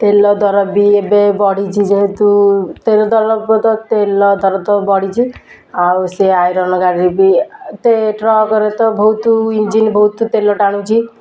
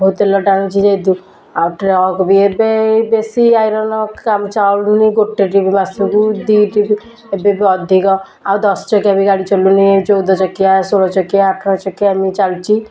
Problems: constant background noise